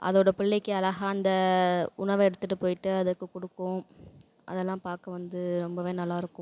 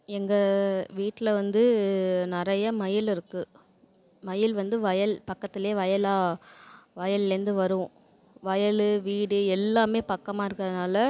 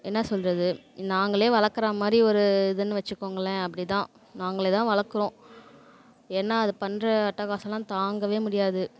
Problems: none marked